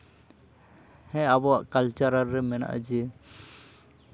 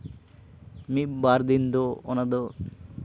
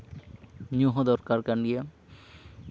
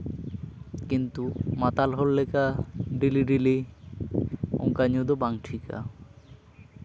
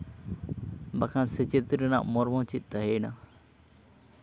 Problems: constant background noise, continuous background conversations